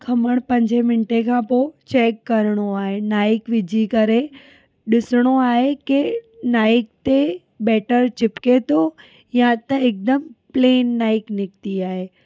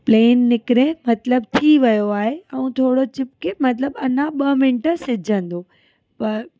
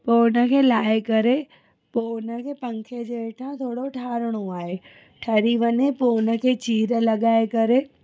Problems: none marked